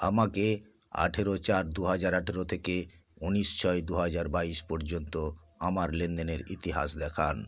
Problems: none marked